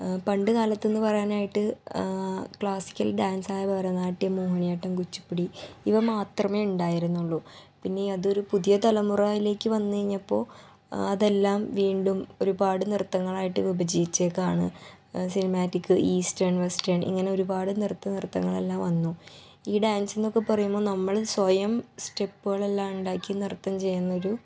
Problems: background sounds at intervals, low volume